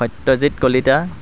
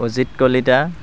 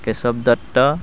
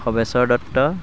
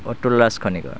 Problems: background sounds at intervals